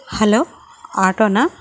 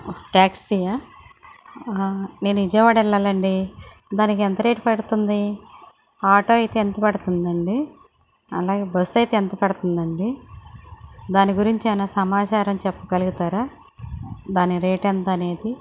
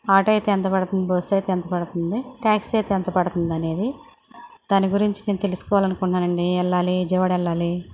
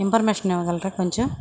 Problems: none marked